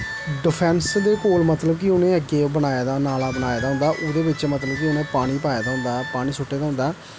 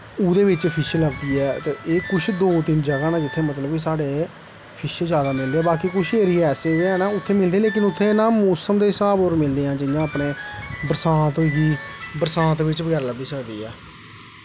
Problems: constant background noise